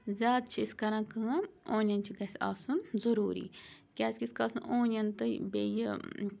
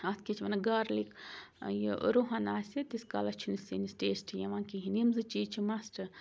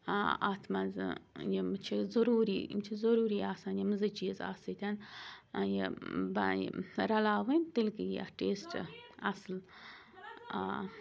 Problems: constant background noise